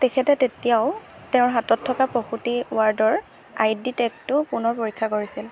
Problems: none marked